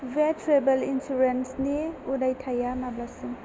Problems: constant background noise